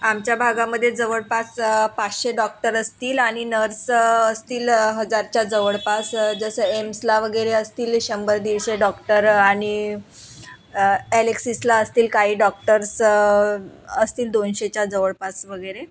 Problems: background sounds at intervals